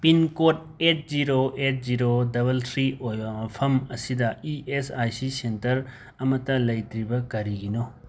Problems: none marked